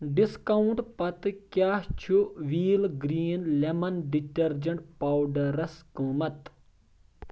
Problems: none marked